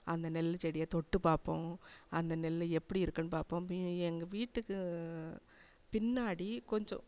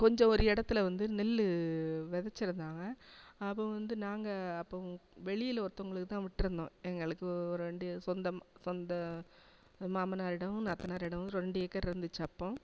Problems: constant background noise